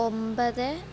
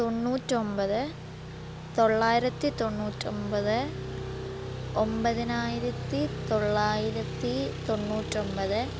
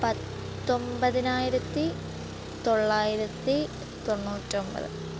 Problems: constant background noise